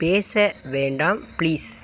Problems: none marked